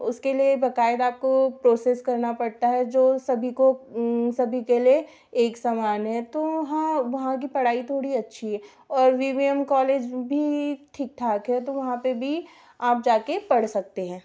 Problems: background sounds at intervals